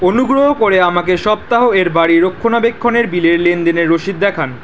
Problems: none marked